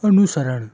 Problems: constant background noise